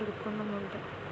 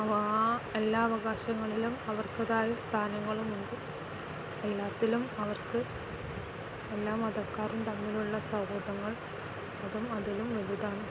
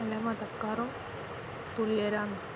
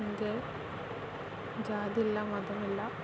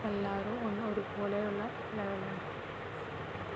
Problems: constant background noise